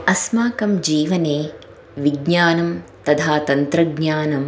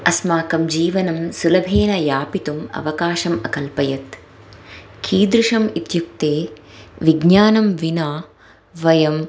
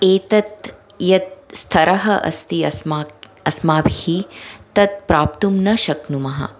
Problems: background sounds at intervals